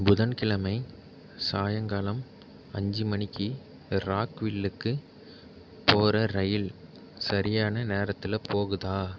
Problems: none marked